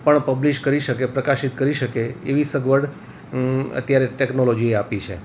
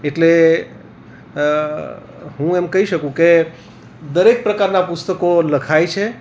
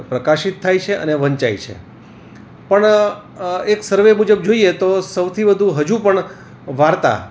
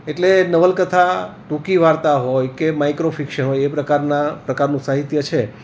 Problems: none marked